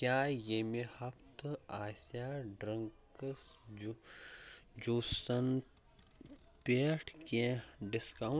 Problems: low volume